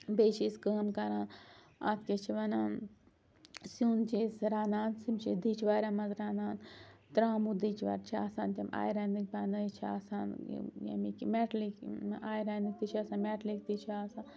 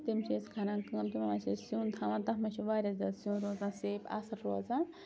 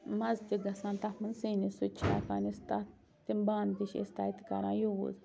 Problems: constant background noise